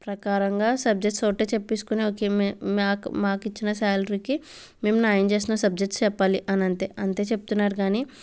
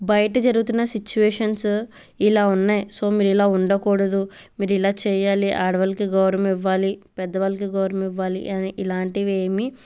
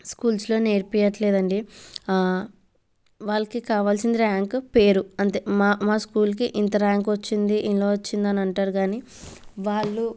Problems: none marked